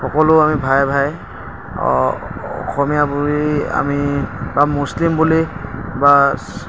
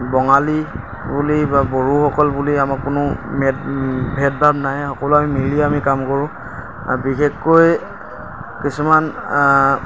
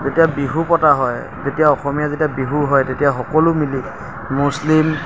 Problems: constant background noise, background conversations at intervals